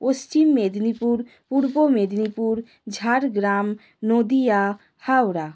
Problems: constant background noise